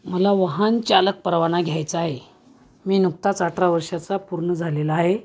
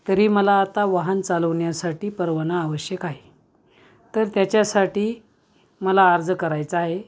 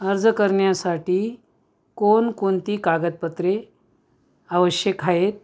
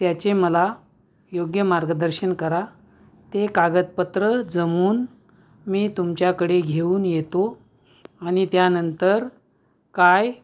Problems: background sounds at intervals